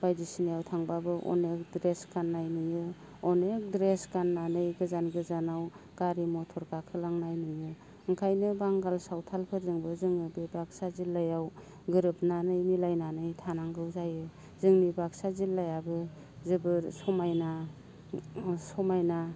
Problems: low volume